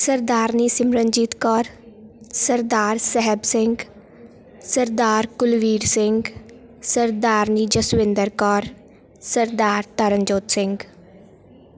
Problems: constant background noise